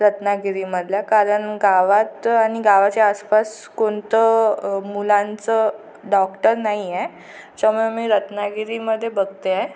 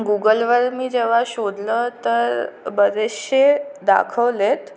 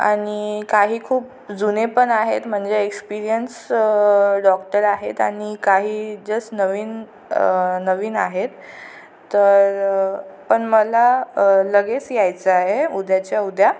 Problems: constant background noise